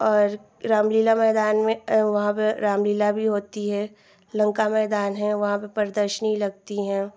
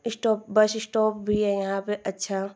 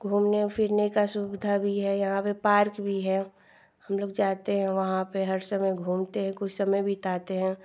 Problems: background sounds at intervals, background conversations at intervals